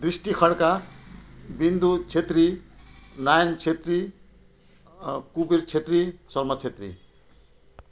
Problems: none marked